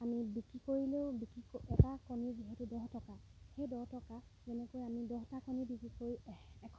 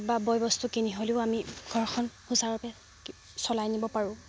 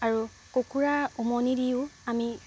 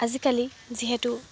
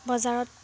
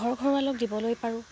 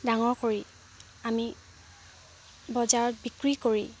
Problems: background sounds at intervals